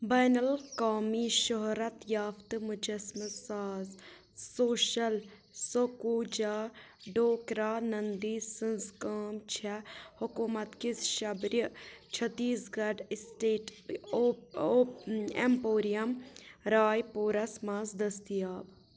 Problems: background sounds at intervals, low volume